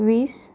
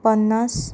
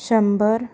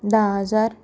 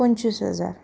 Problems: none marked